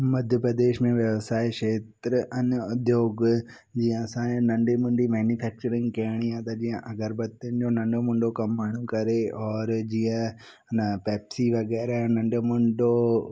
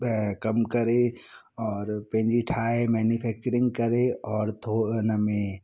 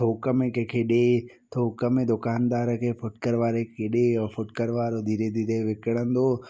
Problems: none marked